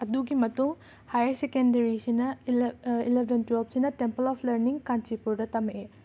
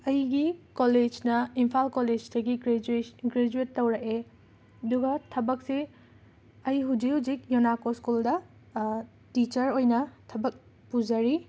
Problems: background sounds at intervals